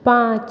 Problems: none marked